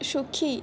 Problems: none marked